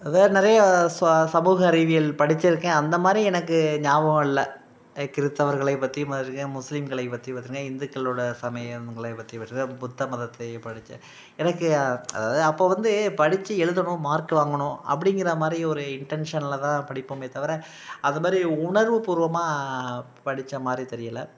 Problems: background sounds at intervals